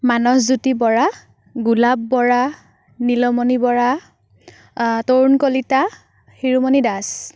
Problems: none marked